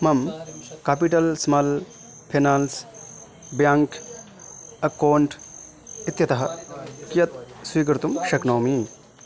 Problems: background sounds at intervals